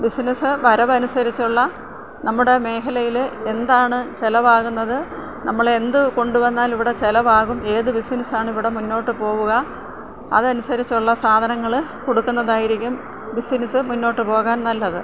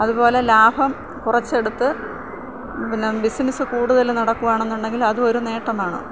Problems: background sounds at intervals, low volume